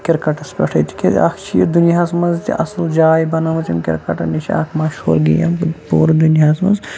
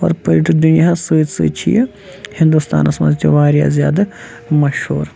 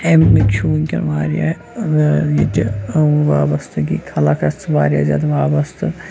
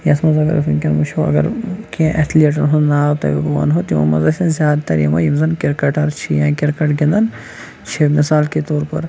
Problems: constant background noise